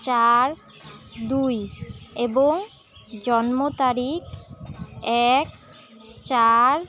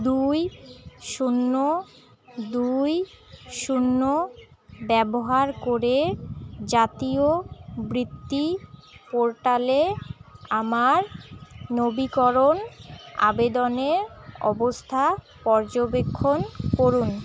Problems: constant background noise, continuous background conversations